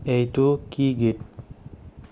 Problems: none marked